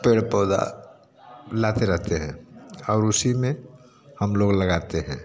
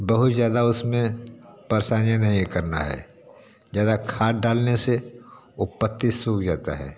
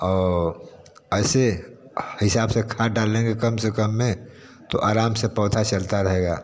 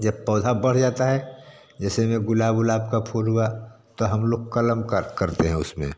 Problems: constant background noise, background conversations at intervals